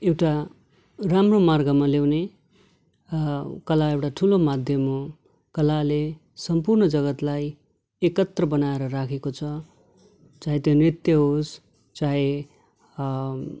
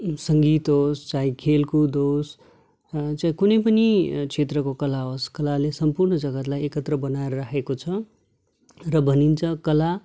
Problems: none marked